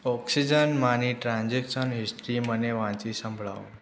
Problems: background sounds at intervals